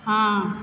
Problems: none marked